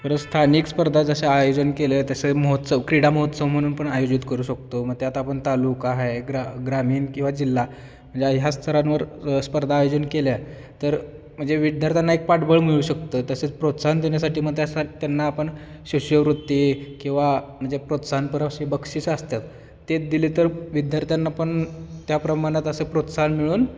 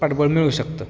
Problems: constant background noise, background conversations at intervals